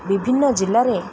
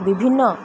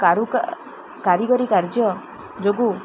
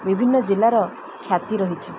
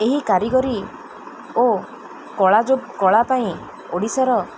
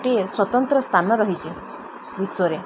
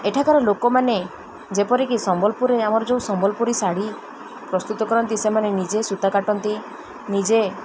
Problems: constant background noise